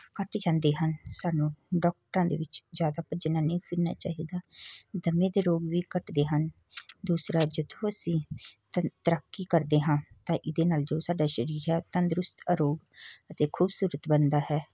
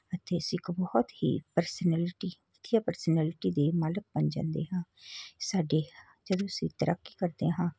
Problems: none marked